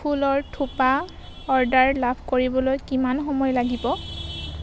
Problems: constant background noise